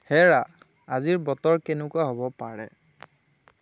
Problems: none marked